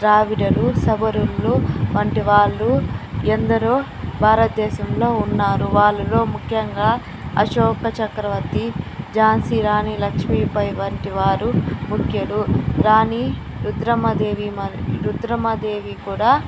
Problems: constant background noise